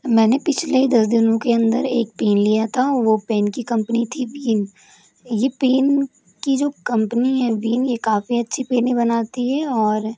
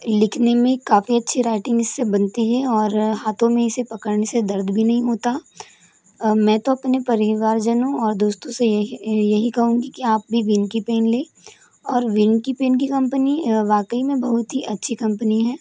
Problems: constant background noise